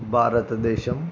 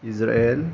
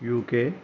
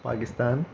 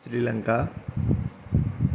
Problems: none marked